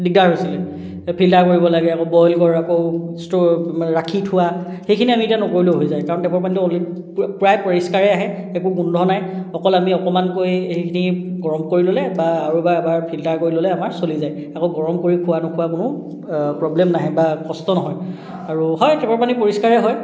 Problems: none marked